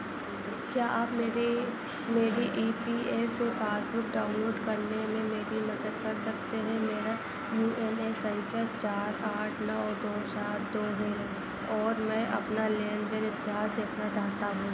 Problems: none marked